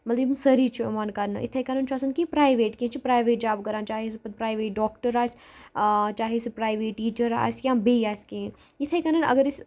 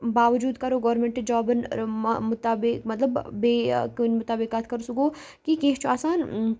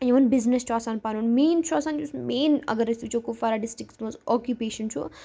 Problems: background sounds at intervals